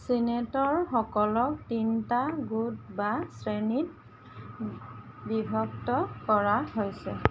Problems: constant background noise